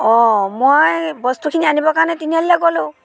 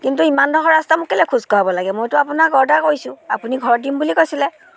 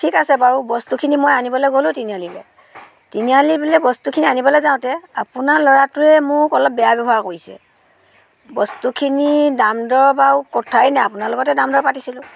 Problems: continuous background conversations